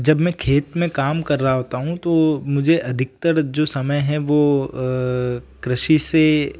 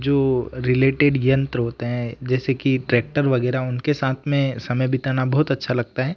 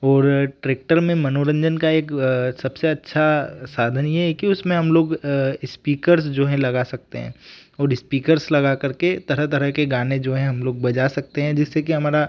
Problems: background sounds at intervals